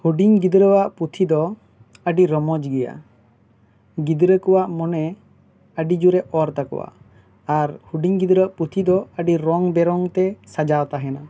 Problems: background sounds at intervals